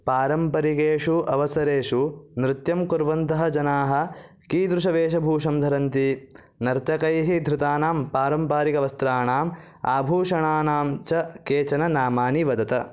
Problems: none marked